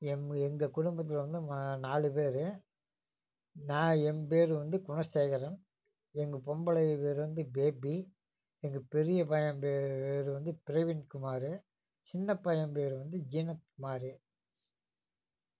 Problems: none marked